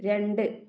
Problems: low volume